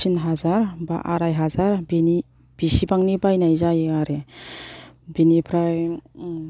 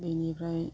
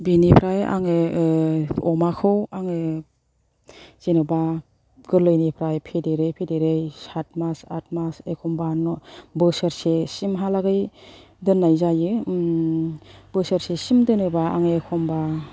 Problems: low volume